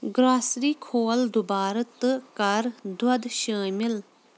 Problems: background sounds at intervals